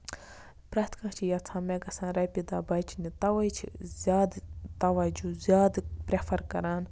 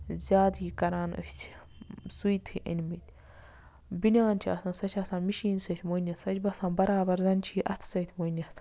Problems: constant background noise